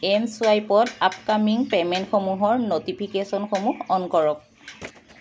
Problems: constant background noise